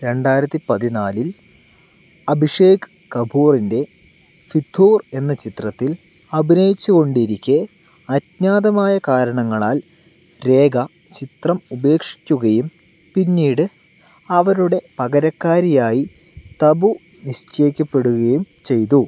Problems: background sounds at intervals